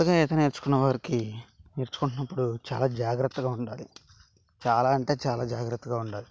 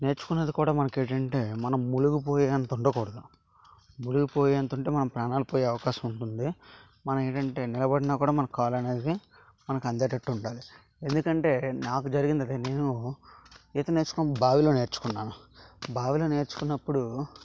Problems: constant background noise